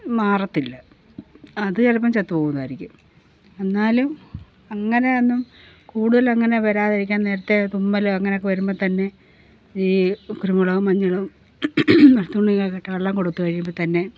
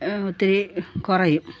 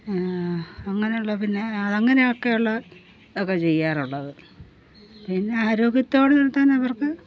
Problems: background sounds at intervals